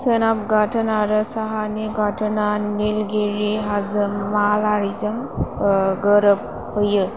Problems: constant background noise